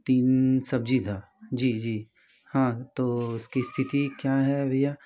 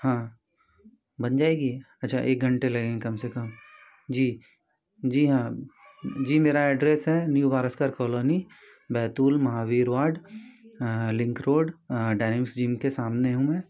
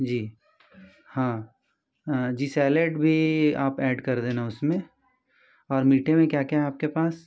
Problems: none marked